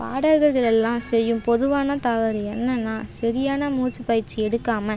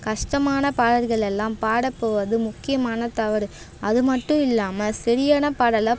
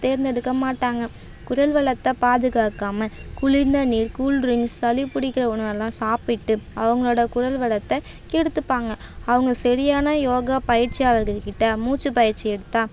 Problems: none marked